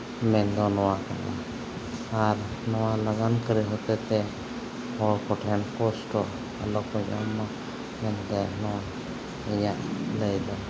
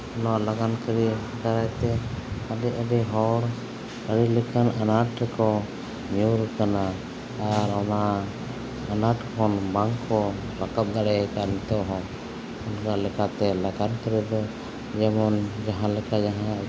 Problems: constant background noise